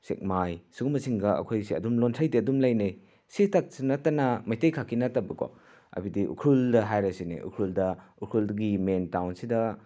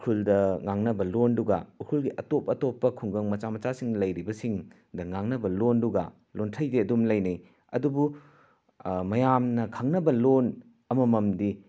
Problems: none marked